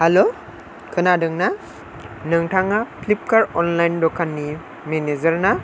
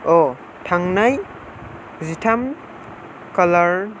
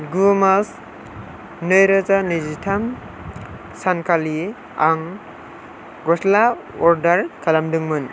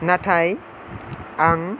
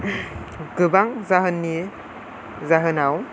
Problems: none marked